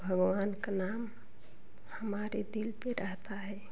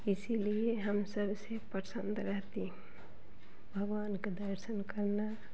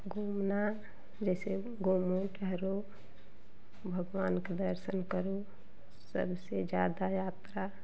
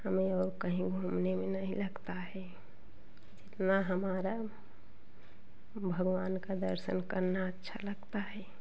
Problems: constant background noise, continuous background conversations